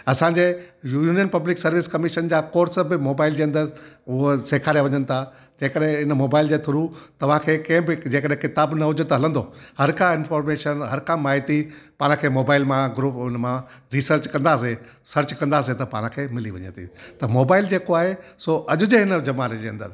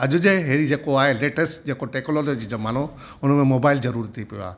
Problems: constant background noise, echo